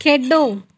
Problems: background sounds at intervals